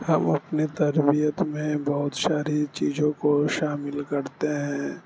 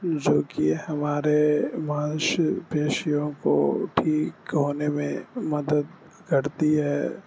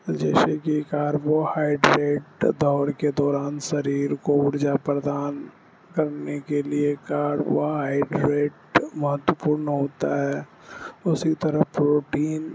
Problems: constant background noise